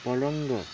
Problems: none marked